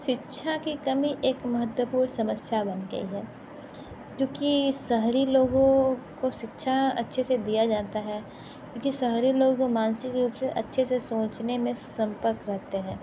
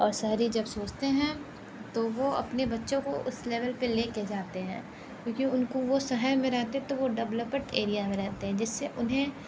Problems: none marked